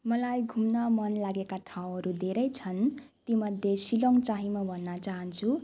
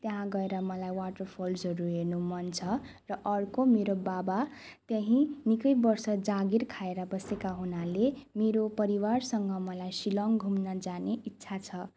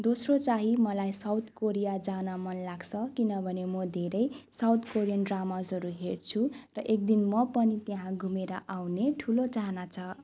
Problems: background sounds at intervals